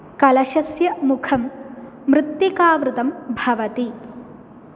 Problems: none marked